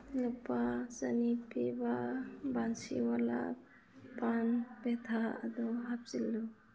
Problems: low volume